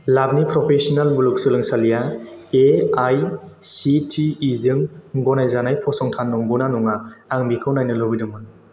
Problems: constant background noise